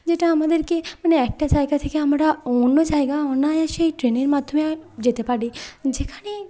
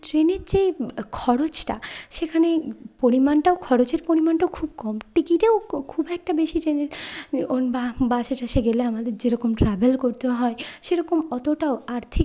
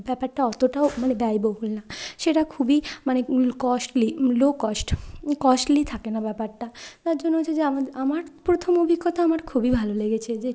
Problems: none marked